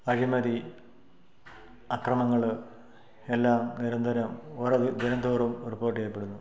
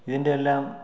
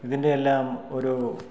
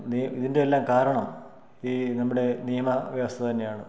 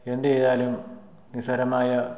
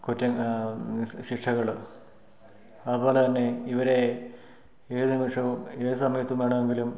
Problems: none marked